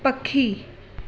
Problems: constant background noise, echo